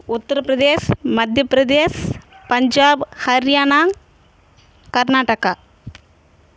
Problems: none marked